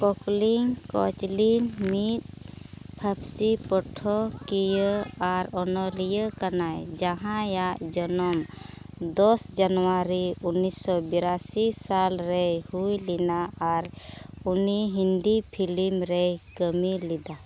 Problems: none marked